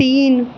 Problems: none marked